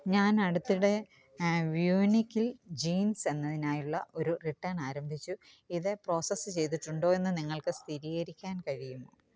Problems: background conversations at intervals